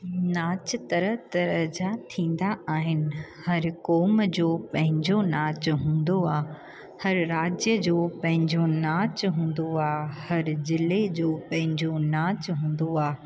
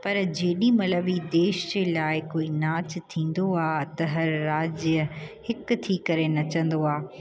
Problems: constant background noise